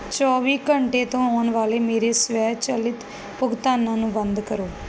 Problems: background sounds at intervals